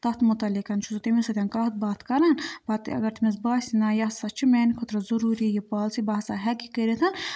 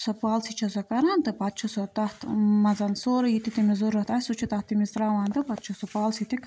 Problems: background conversations at intervals